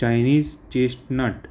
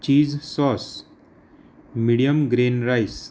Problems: none marked